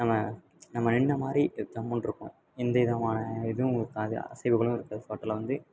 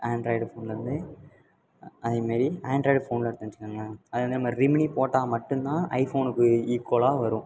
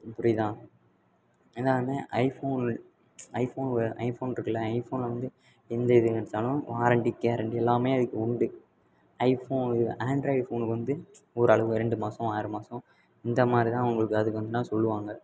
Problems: background sounds at intervals